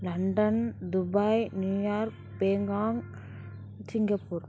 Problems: background sounds at intervals